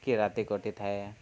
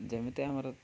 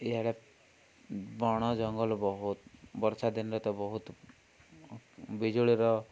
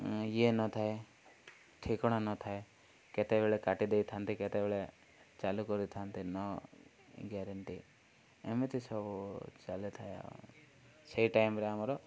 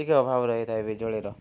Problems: low volume